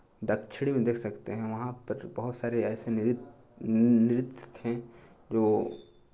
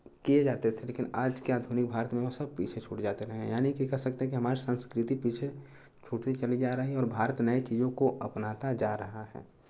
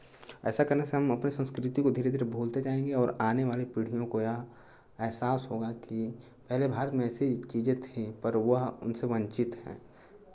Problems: constant background noise